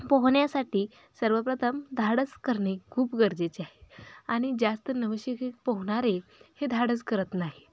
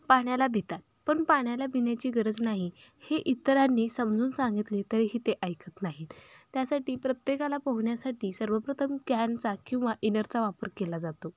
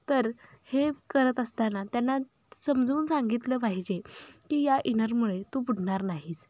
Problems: background sounds at intervals